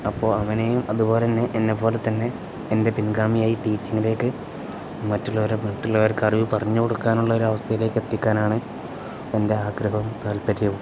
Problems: none marked